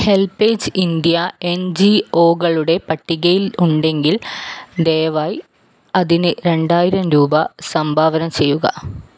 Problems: none marked